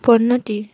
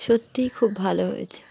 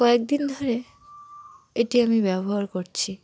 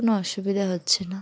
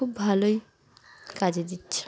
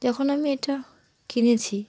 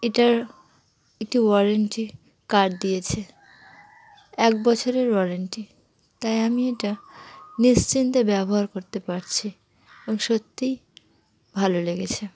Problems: none marked